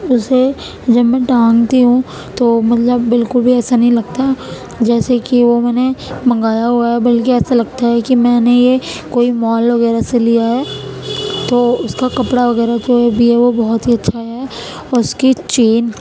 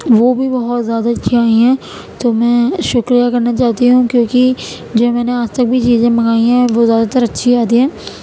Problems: constant background noise